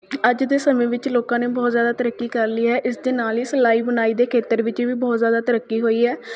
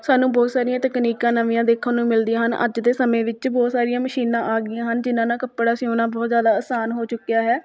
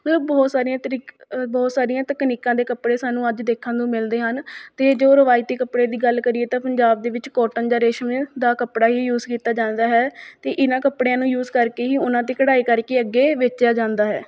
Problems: continuous background conversations